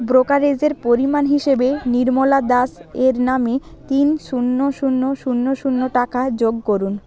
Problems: continuous background conversations